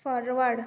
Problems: none marked